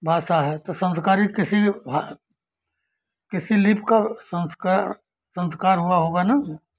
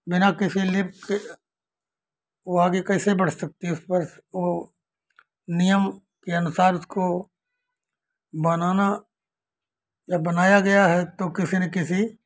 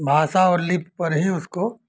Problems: none marked